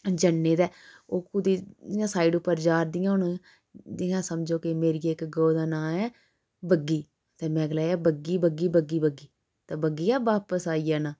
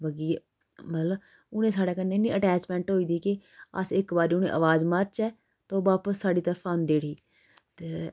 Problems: background sounds at intervals